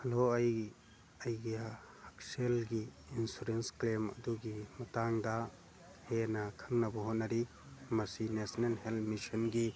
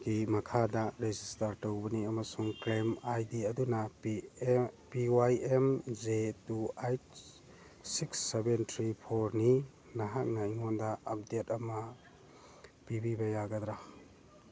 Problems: background sounds at intervals, background conversations at intervals